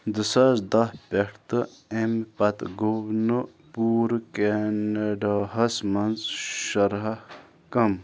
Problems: background sounds at intervals